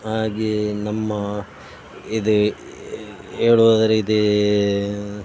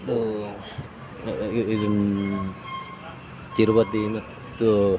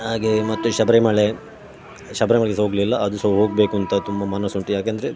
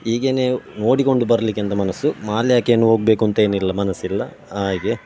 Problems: none marked